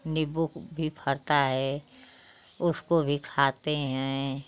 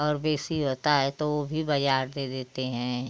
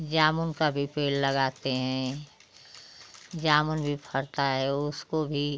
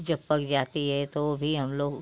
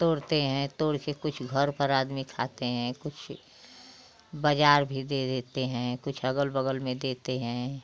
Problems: constant background noise